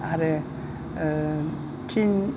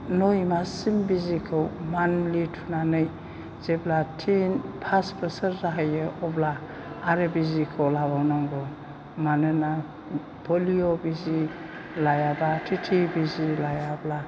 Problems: constant background noise